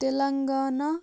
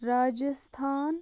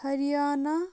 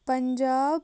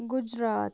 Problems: background sounds at intervals